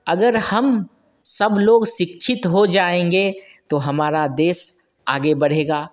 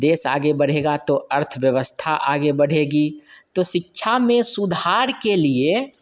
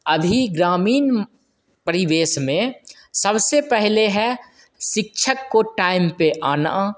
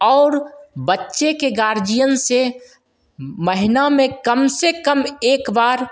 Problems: constant background noise, echo